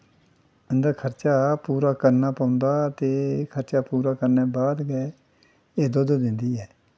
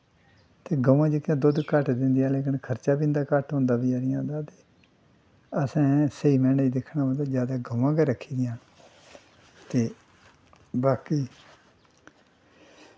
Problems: constant background noise